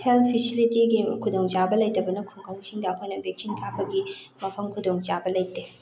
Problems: constant background noise